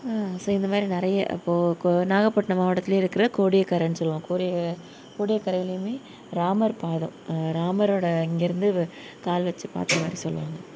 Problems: none marked